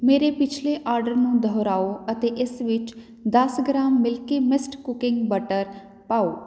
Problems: none marked